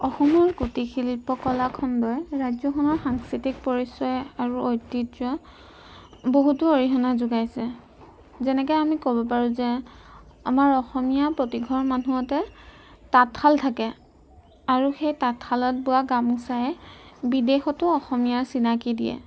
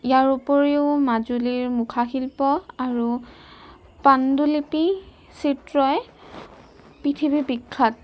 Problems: background sounds at intervals